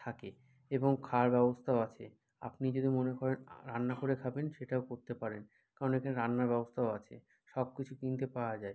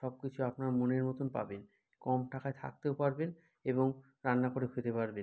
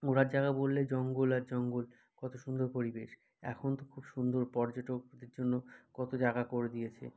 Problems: none marked